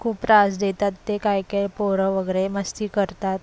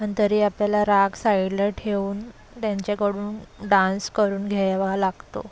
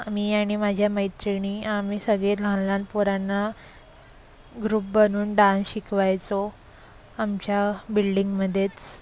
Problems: constant background noise, background conversations at intervals